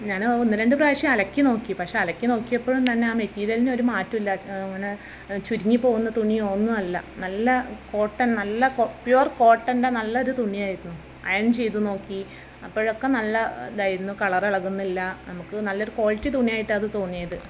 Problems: constant background noise, background conversations at intervals